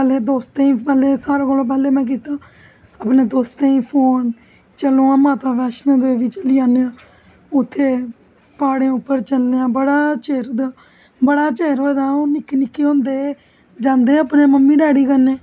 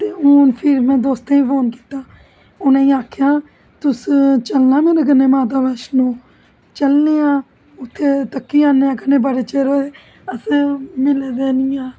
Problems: constant background noise